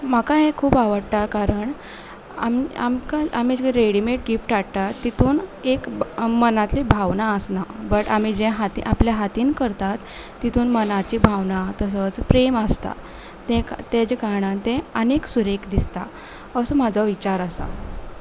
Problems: none marked